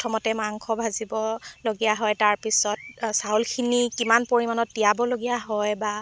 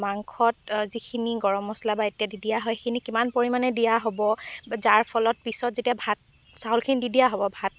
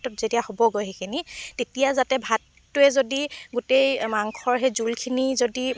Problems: constant background noise